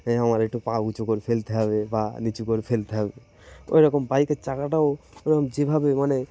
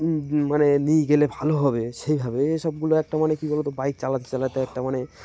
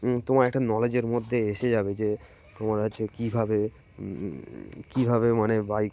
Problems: constant background noise, continuous background conversations